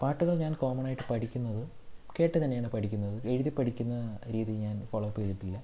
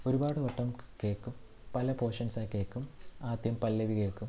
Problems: none marked